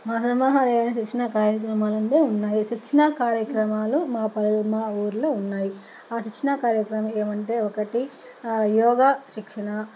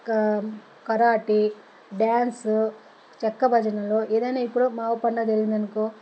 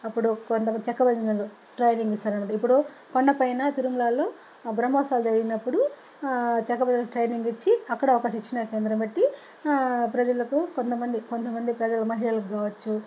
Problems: constant background noise